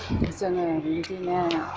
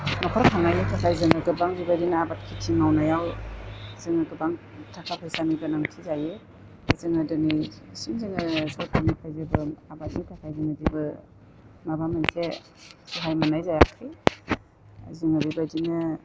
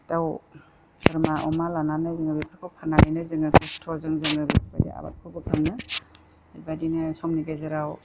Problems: constant background noise